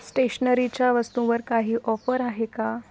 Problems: background sounds at intervals